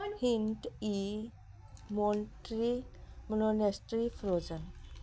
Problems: background sounds at intervals